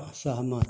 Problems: none marked